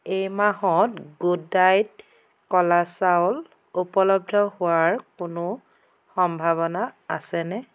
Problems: none marked